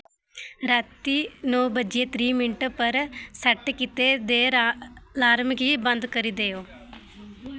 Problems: background sounds at intervals